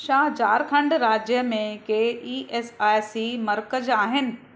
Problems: constant background noise